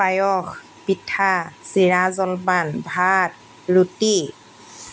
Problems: constant background noise